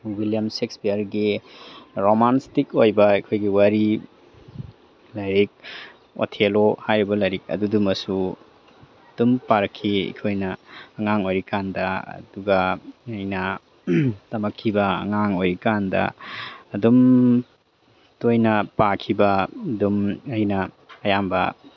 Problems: background sounds at intervals